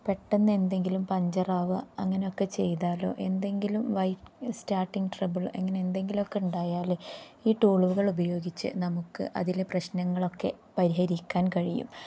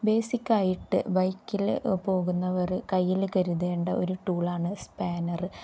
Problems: low volume